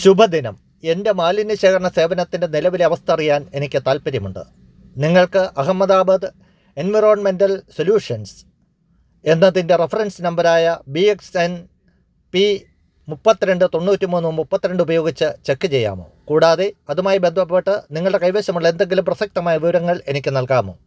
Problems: none marked